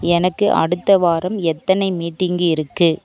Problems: none marked